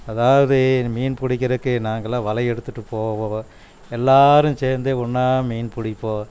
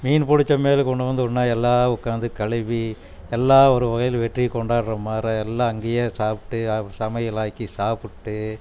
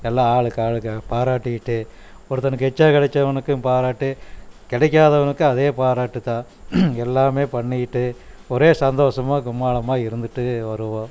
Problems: none marked